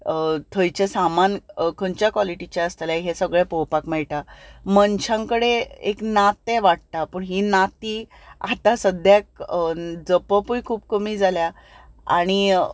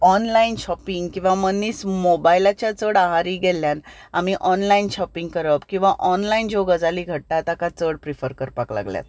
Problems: none marked